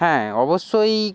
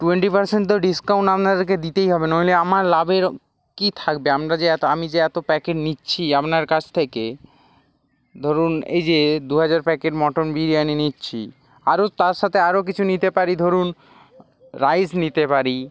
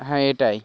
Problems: background sounds at intervals